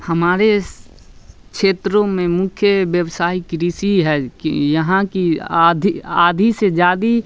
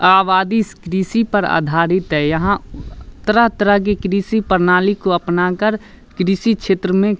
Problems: none marked